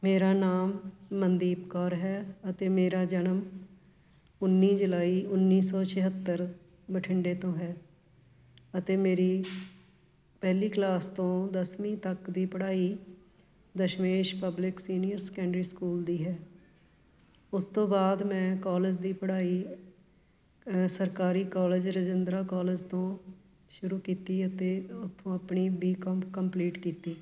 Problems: none marked